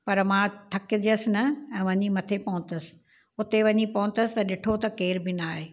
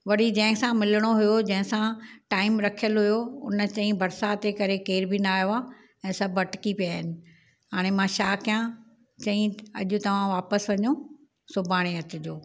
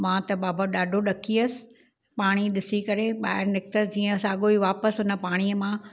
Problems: none marked